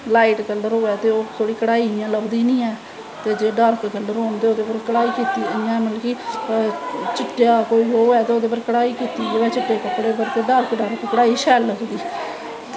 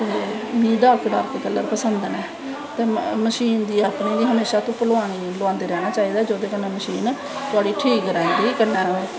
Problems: constant background noise